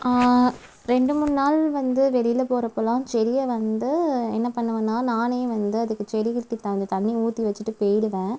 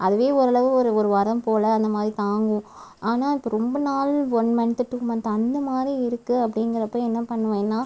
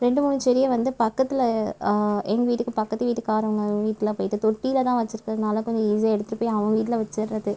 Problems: background sounds at intervals